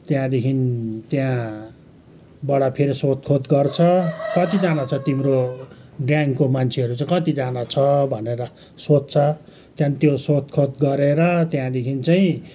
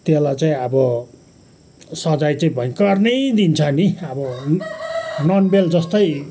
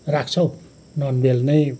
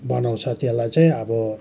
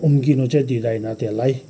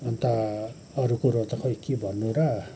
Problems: background sounds at intervals